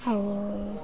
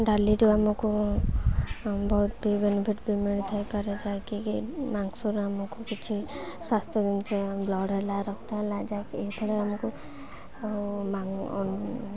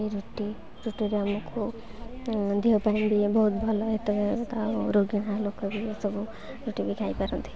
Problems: constant background noise